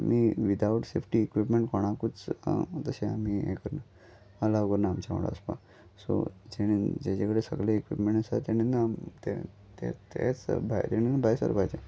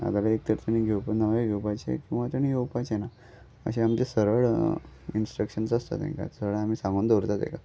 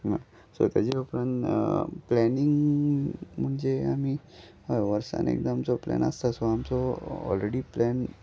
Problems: background sounds at intervals